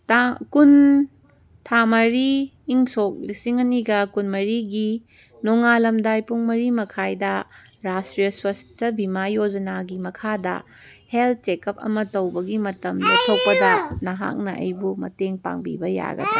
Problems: background conversations at intervals